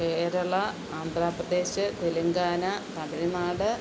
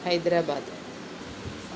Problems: constant background noise